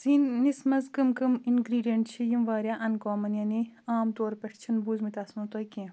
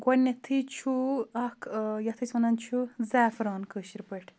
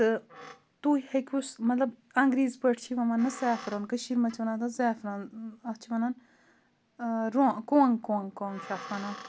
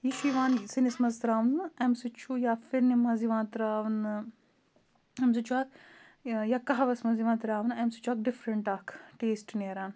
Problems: none marked